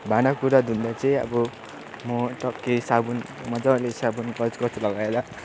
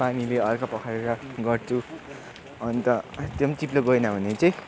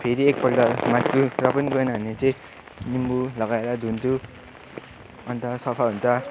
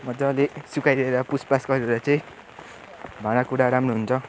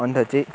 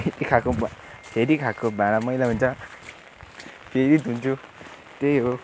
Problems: continuous background conversations